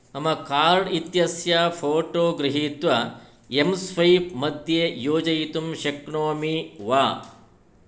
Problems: none marked